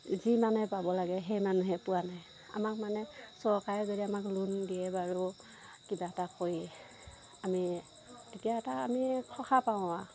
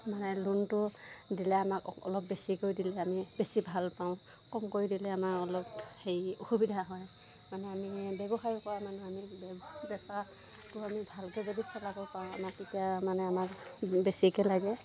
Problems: background sounds at intervals